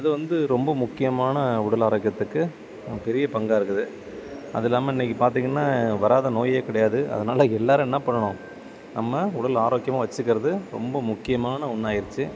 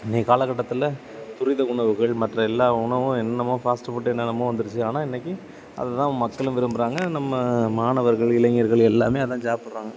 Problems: constant background noise